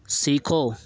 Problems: constant background noise